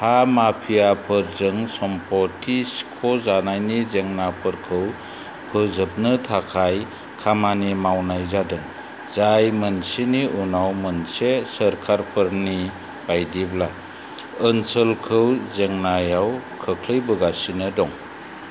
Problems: constant background noise